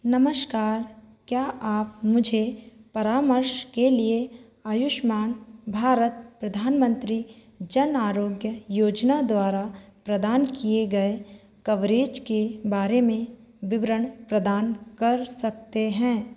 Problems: echo